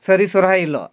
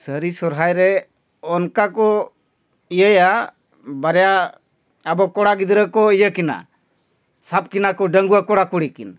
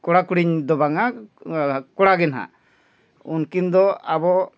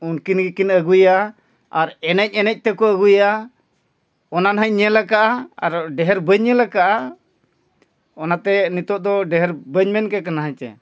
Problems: none marked